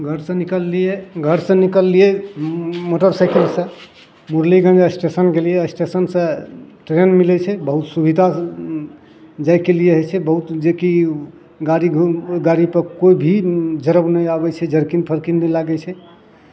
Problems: none marked